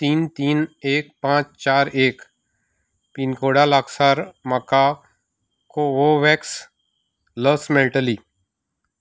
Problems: background sounds at intervals